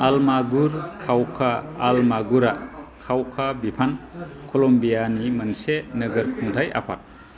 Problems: constant background noise